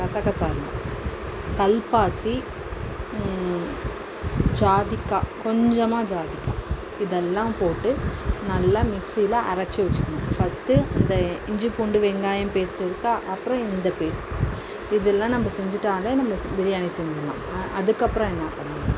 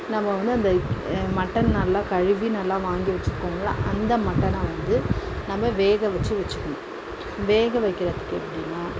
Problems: constant background noise